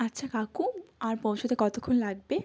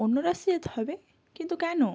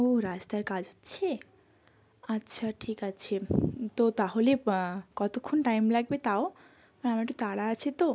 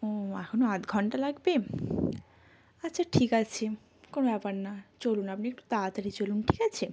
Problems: constant background noise